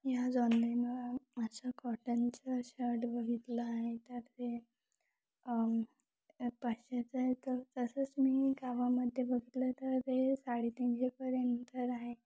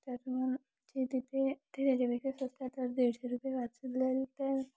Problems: background sounds at intervals